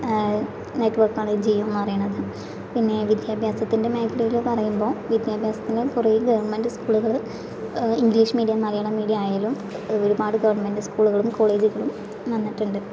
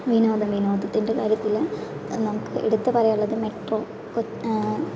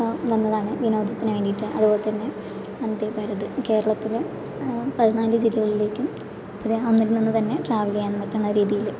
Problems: constant background noise